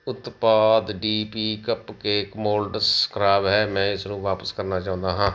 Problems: background sounds at intervals